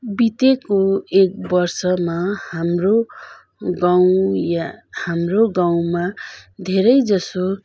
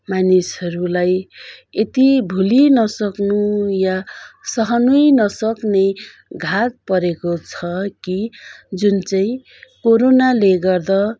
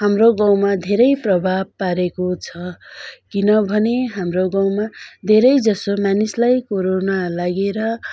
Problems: continuous background conversations